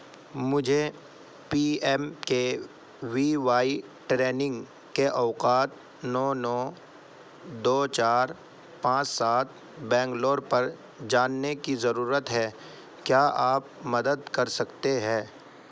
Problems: none marked